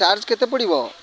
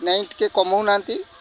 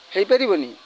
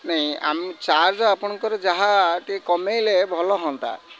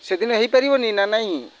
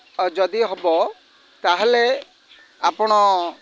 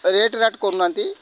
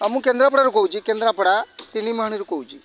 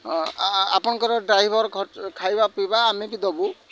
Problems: constant background noise, continuous background conversations